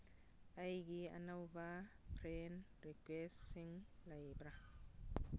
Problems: none marked